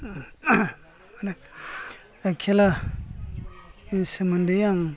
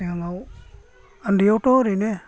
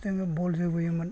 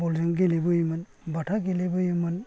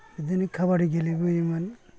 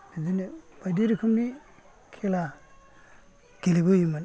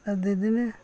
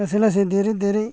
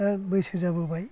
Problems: low volume